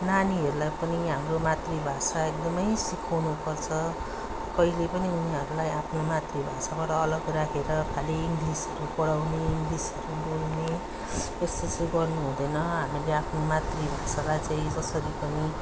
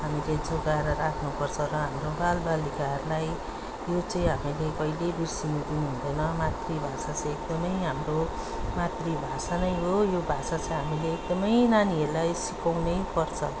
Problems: background sounds at intervals